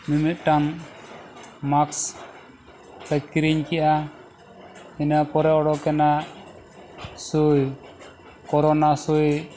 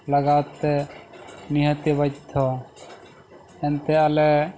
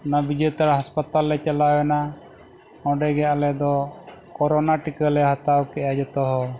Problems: background sounds at intervals